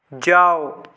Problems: background sounds at intervals